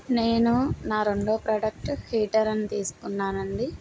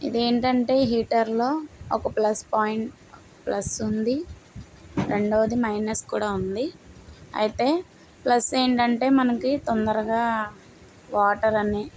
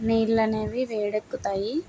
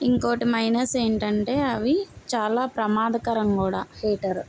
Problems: none marked